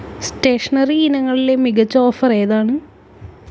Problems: constant background noise